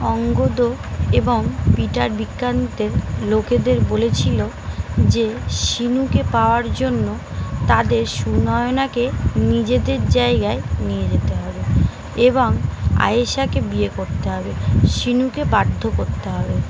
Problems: constant background noise